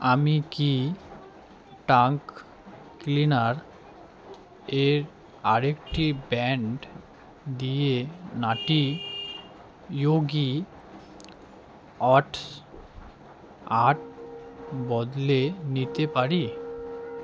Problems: constant background noise